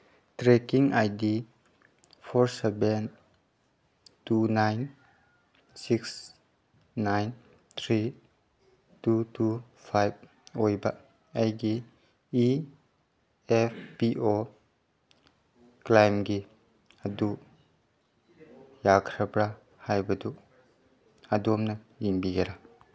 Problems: none marked